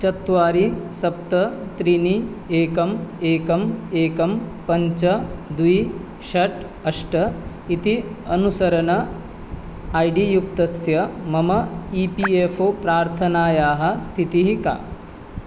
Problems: none marked